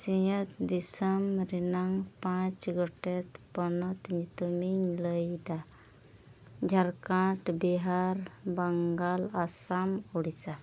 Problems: background sounds at intervals, low volume